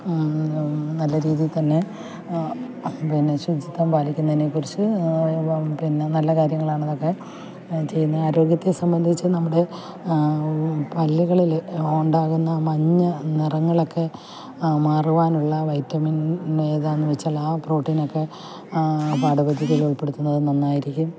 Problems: background sounds at intervals, low volume